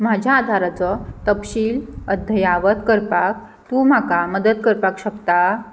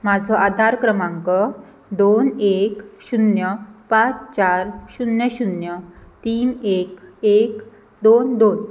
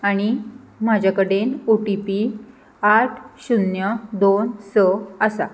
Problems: none marked